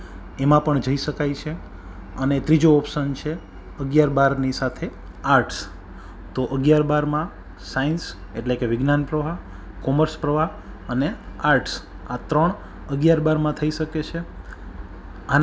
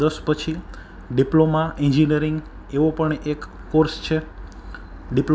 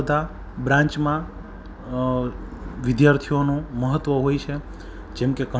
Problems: background sounds at intervals